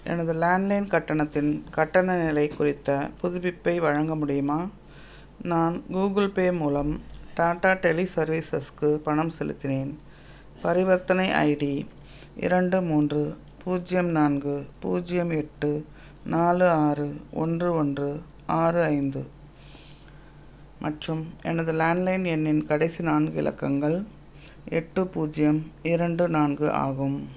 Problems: none marked